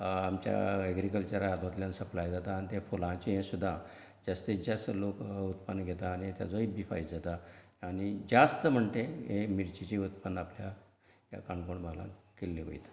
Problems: none marked